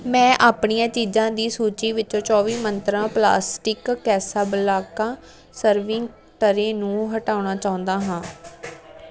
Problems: constant background noise